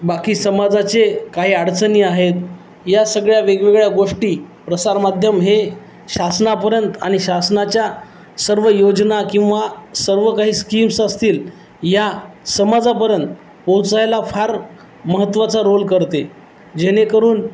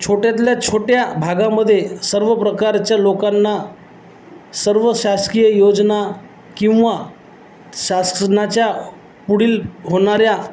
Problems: none marked